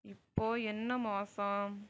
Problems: low volume